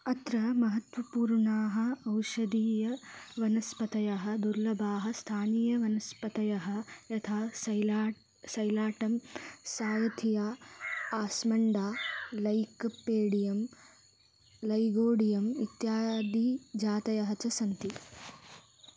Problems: background sounds at intervals